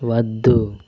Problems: constant background noise